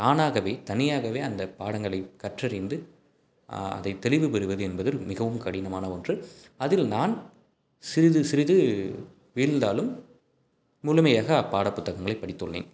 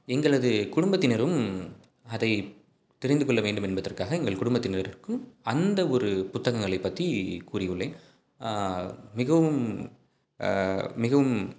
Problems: background sounds at intervals